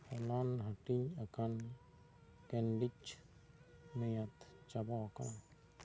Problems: none marked